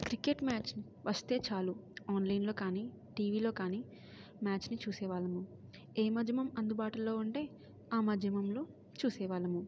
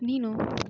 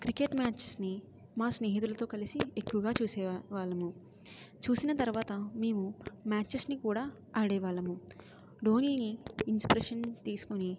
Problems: low volume